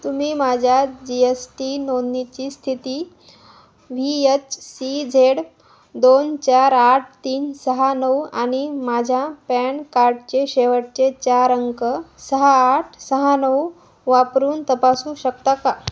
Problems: constant background noise, echo